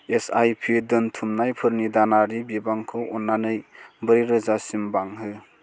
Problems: constant background noise